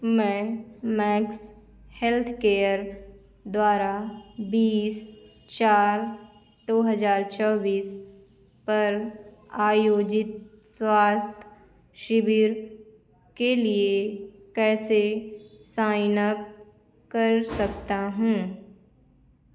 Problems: constant background noise